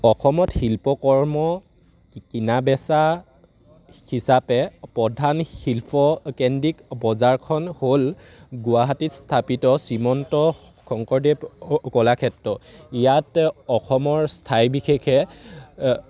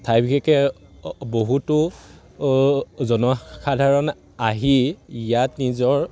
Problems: none marked